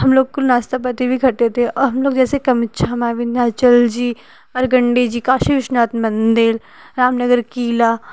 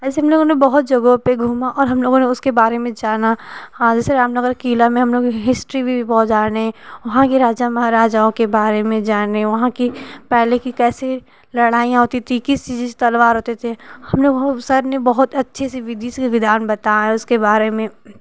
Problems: constant background noise